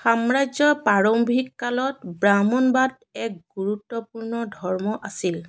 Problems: background sounds at intervals